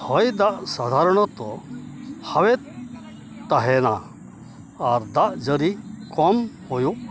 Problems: background sounds at intervals